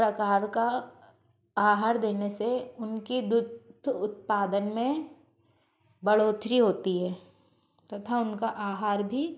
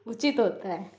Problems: constant background noise, background conversations at intervals